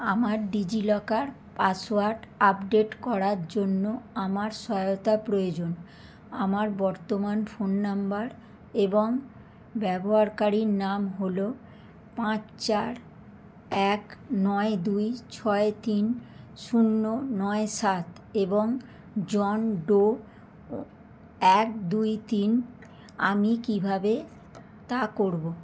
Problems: constant background noise